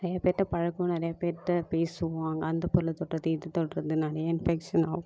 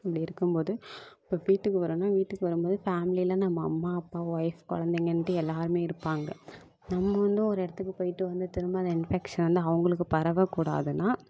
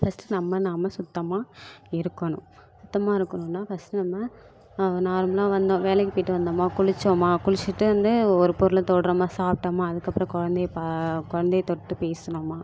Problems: constant background noise